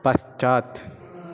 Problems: constant background noise